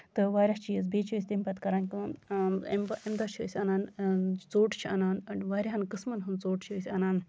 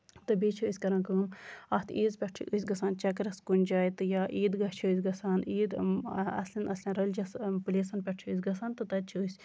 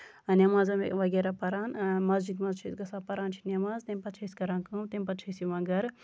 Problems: constant background noise